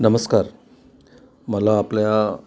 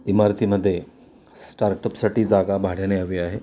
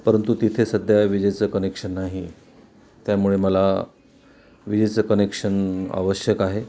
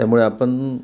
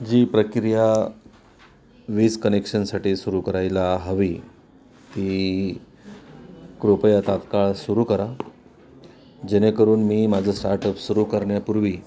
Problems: constant background noise, continuous background conversations